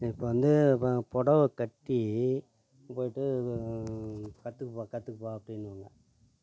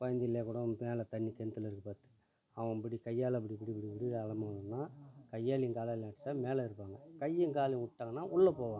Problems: none marked